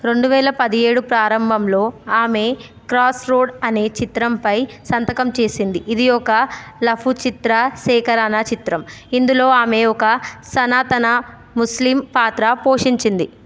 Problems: none marked